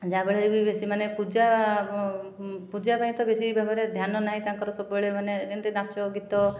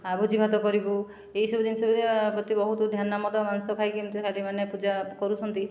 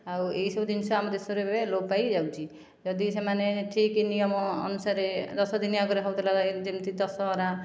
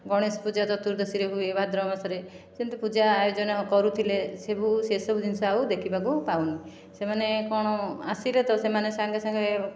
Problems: none marked